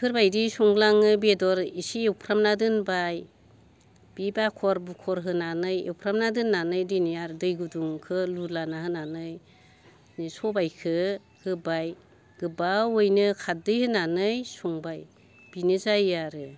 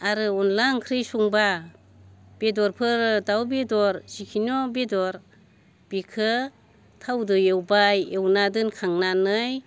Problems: constant background noise